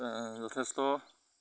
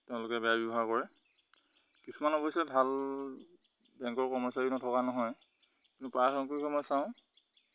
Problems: background sounds at intervals